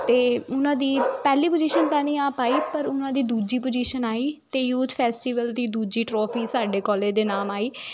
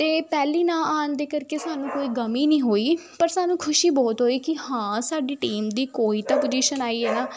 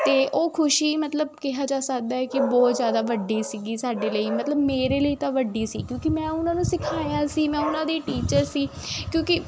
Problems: constant background noise